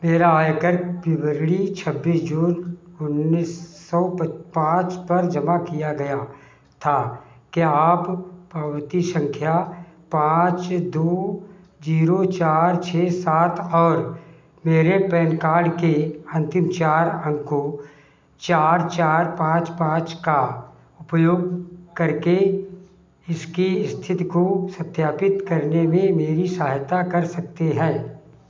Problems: constant background noise